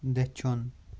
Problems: none marked